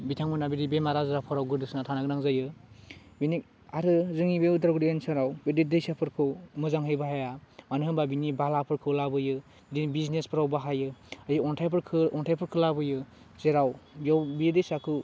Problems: constant background noise